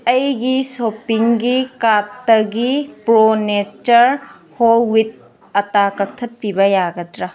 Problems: background sounds at intervals